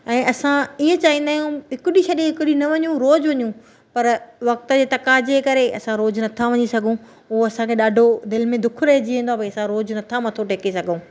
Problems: none marked